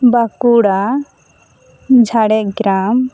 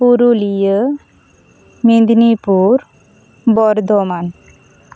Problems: constant background noise